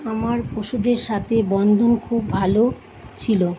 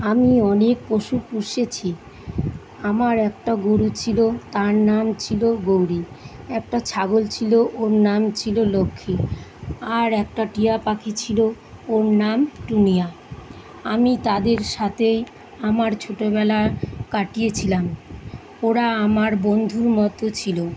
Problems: constant background noise